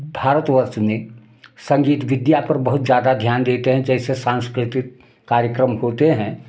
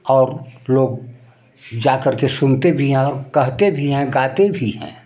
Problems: constant background noise